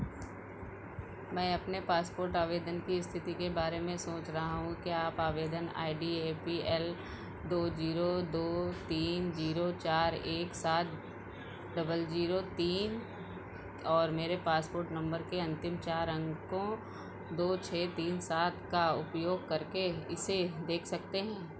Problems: none marked